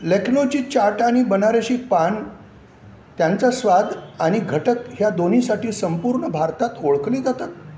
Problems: none marked